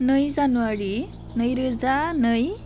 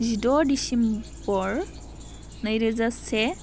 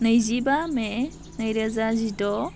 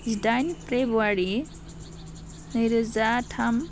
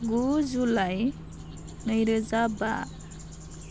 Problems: none marked